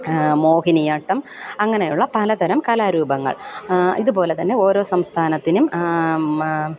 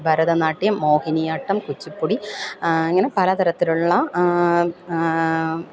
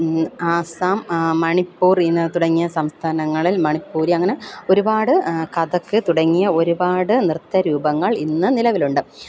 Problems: none marked